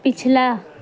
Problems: constant background noise